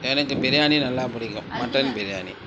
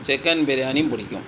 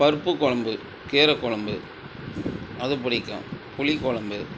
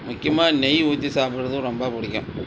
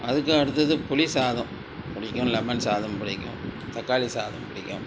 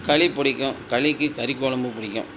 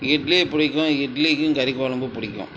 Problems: constant background noise, background conversations at intervals